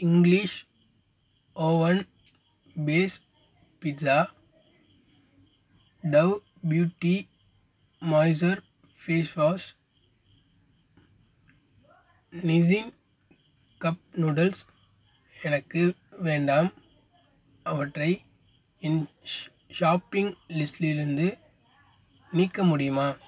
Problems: constant background noise